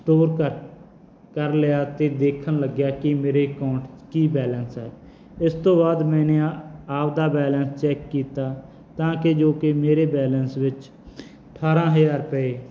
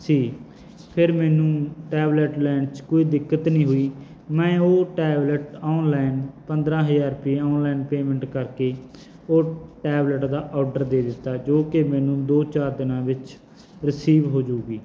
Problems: none marked